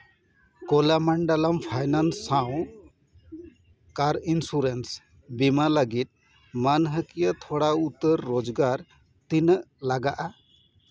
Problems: none marked